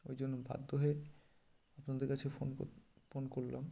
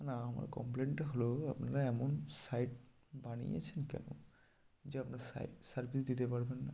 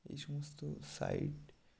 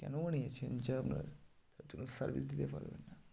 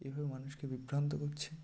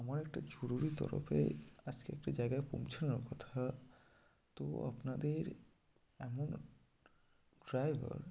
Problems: constant background noise